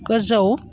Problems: constant background noise